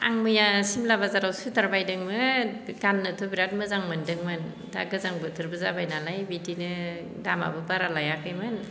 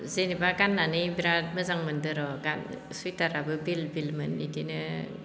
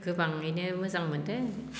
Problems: constant background noise